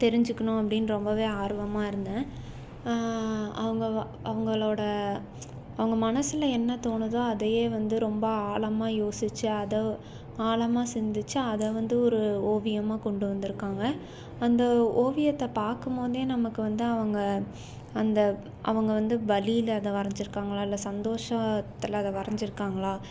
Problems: none marked